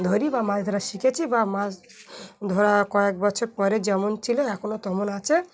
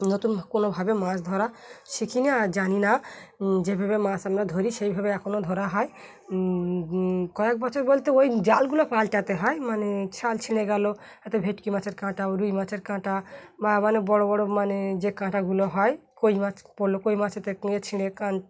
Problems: constant background noise